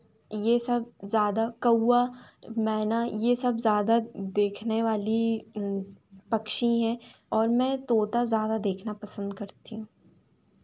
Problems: constant background noise